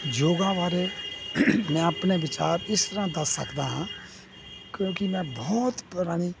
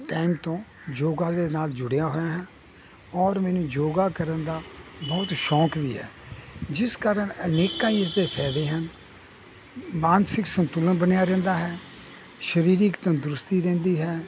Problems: none marked